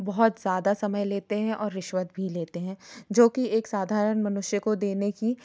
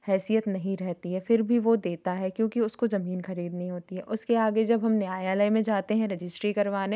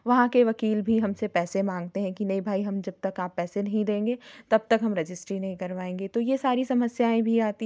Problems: background sounds at intervals